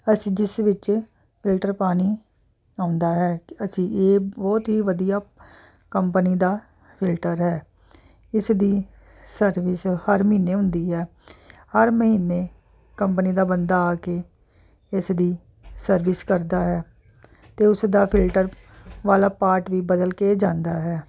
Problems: constant background noise